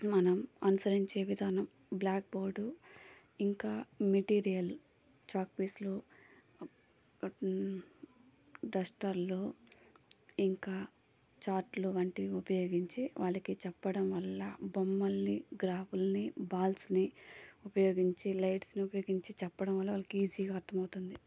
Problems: low volume